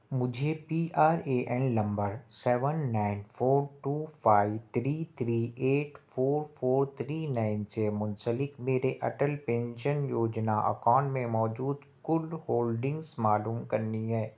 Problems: constant background noise